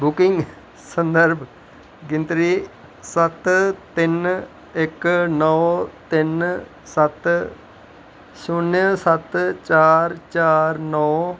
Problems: none marked